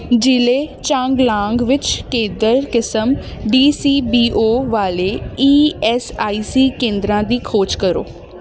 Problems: none marked